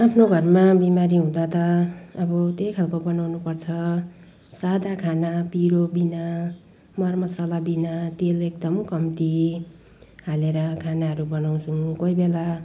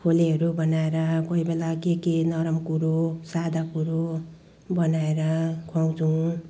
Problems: background conversations at intervals